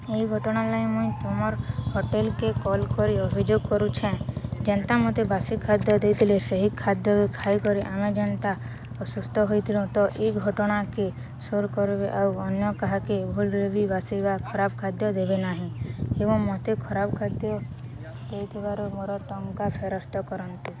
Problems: constant background noise, continuous background conversations